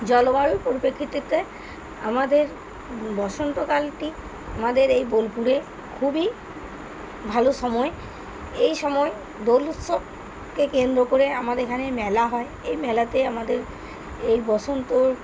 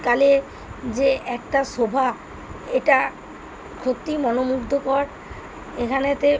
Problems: constant background noise